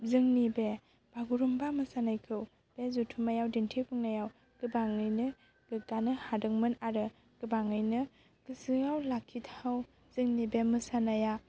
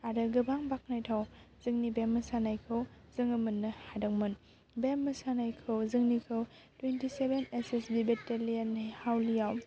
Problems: none marked